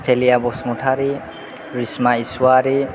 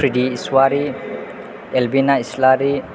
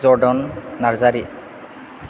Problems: constant background noise